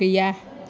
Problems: constant background noise